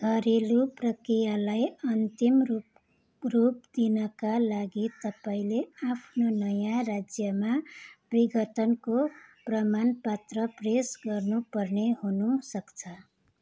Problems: background sounds at intervals